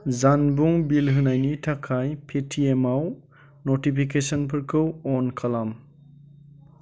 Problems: constant background noise